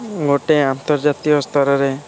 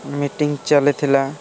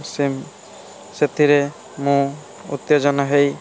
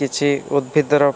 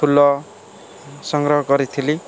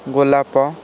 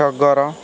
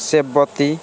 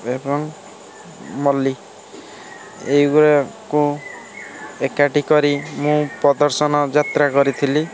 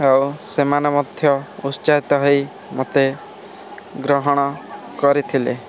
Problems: constant background noise